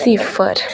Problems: constant background noise